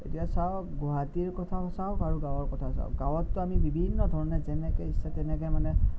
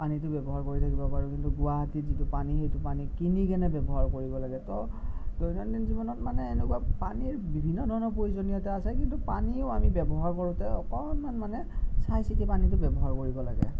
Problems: none marked